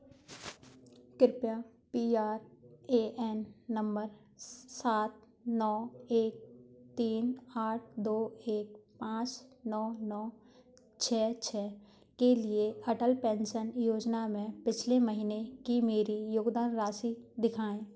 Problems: background sounds at intervals